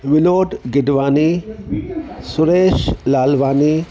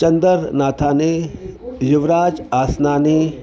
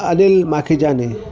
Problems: constant background noise